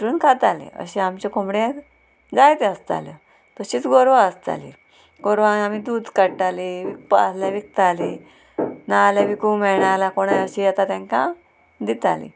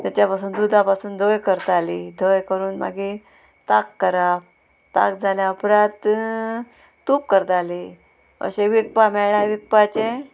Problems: constant background noise